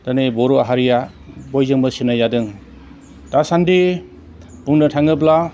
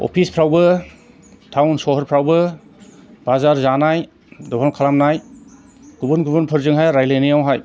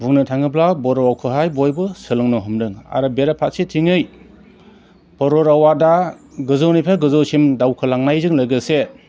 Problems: constant background noise